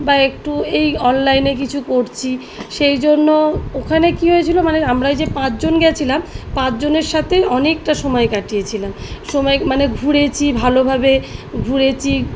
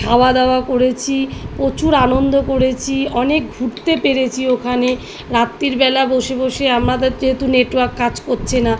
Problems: background sounds at intervals